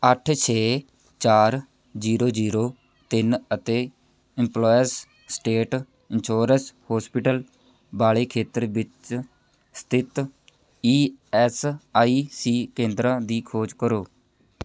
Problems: none marked